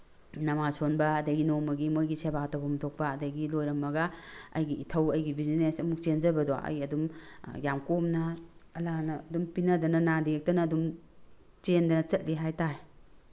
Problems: none marked